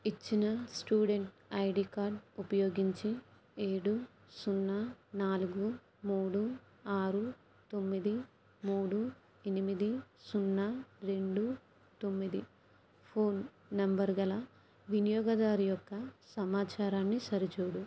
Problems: low volume